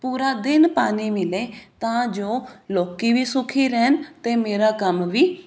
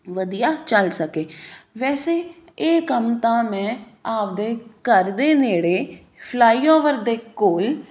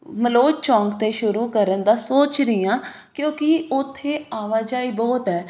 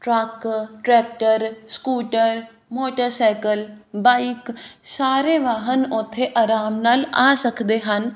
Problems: none marked